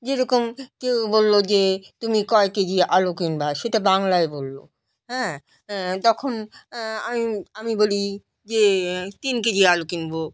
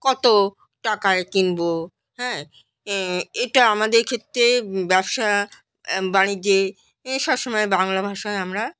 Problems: none marked